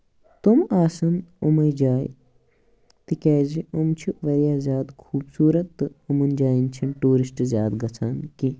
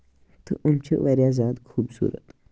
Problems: background sounds at intervals